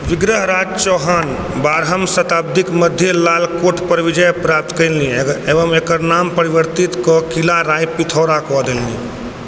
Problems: constant background noise